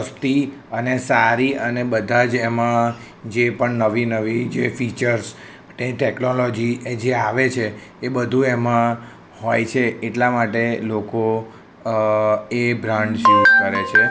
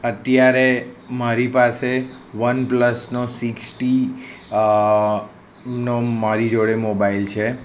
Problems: none marked